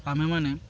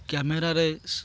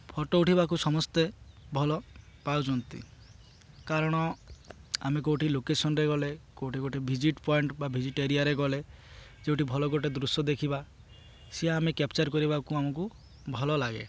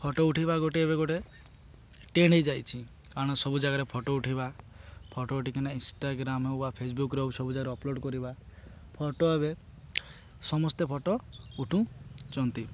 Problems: constant background noise